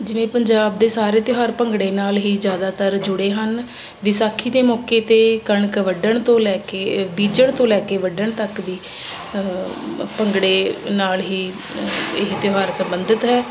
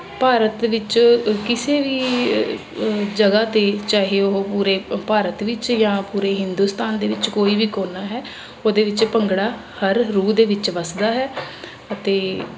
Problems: constant background noise